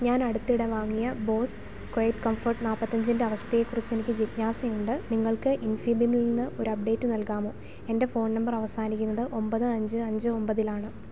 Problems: none marked